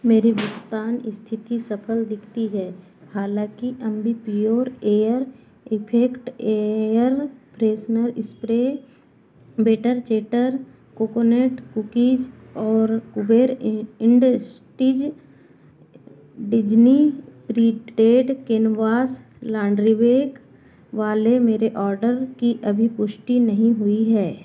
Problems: background sounds at intervals